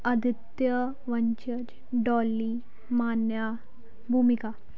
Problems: background sounds at intervals